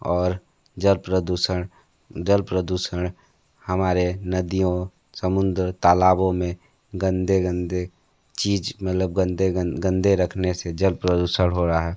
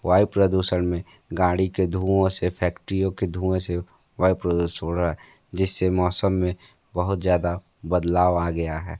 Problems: none marked